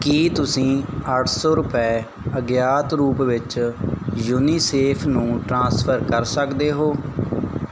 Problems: background sounds at intervals